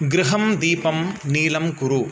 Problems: constant background noise